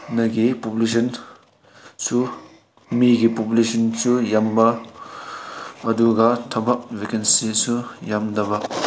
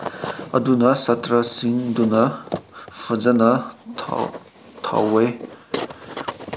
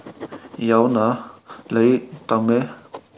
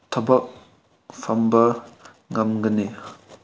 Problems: background sounds at intervals